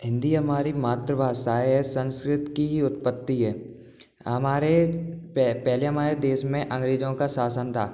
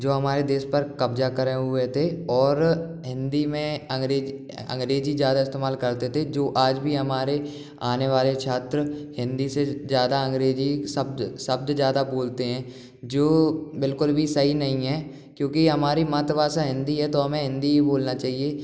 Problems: background sounds at intervals, background conversations at intervals